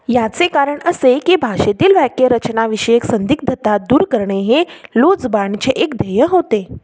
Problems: constant background noise